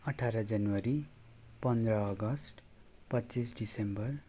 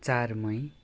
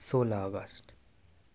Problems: background sounds at intervals